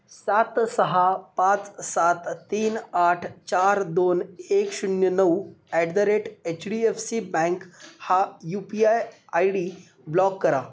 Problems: none marked